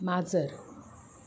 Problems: none marked